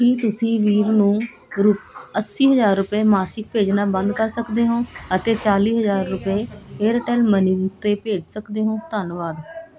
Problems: continuous background conversations